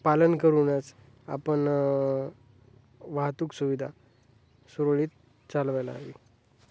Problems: none marked